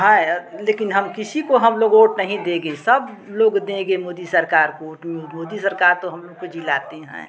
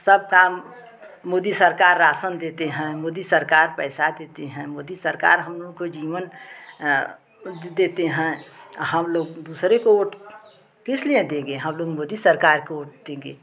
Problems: constant background noise, background conversations at intervals